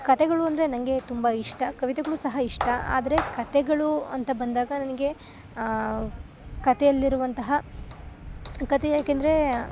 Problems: background sounds at intervals